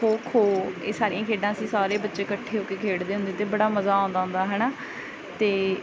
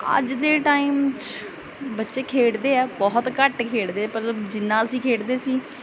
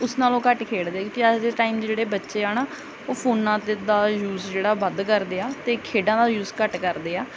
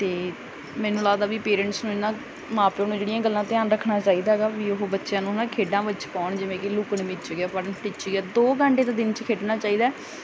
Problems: background sounds at intervals